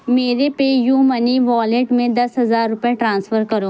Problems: constant background noise